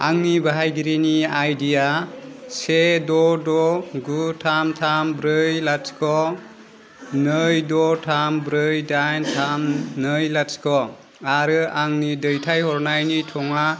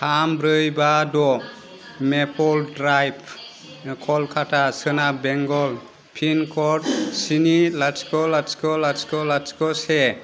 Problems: constant background noise